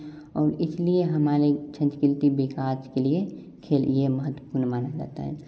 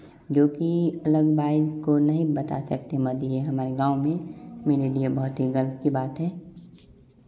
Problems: constant background noise